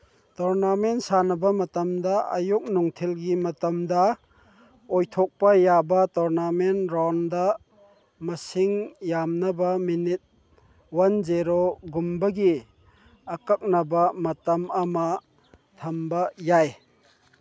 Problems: none marked